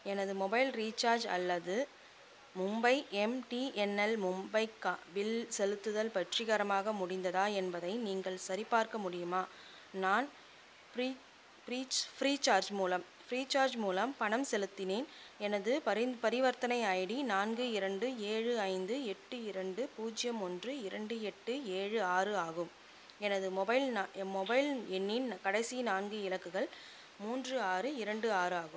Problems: constant background noise